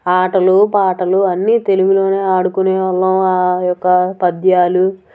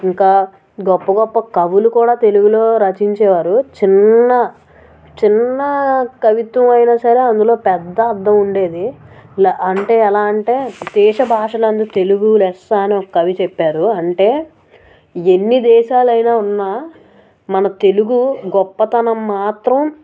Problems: background sounds at intervals